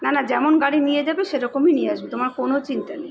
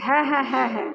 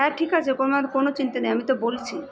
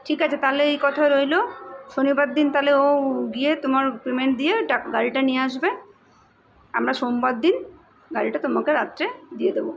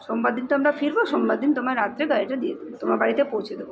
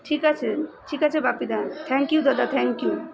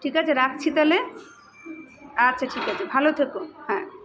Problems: none marked